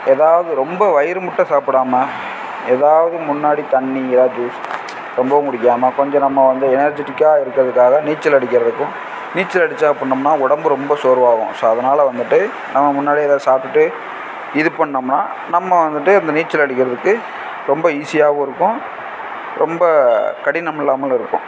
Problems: constant background noise